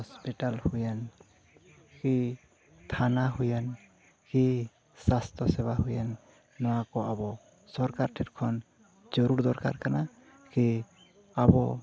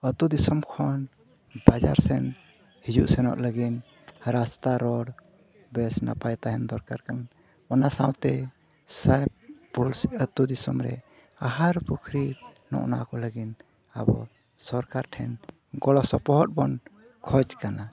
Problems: none marked